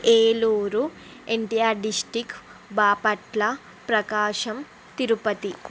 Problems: constant background noise